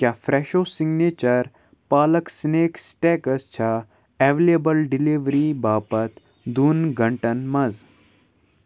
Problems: none marked